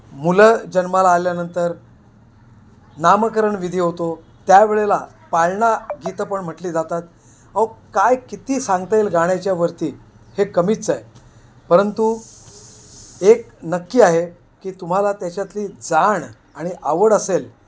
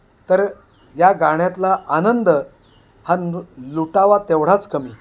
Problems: constant background noise